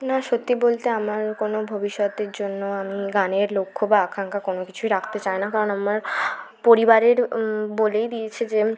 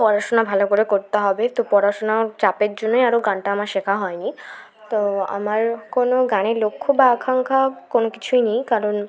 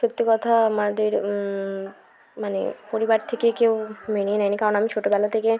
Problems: none marked